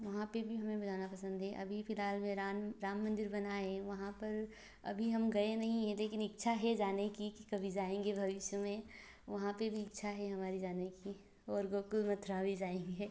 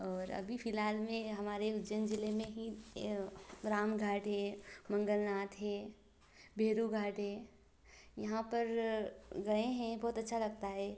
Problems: none marked